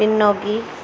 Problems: constant background noise